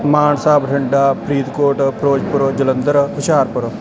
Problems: constant background noise